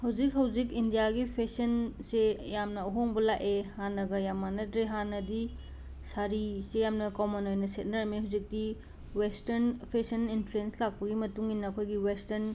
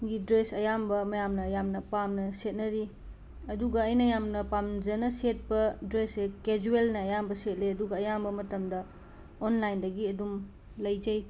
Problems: background sounds at intervals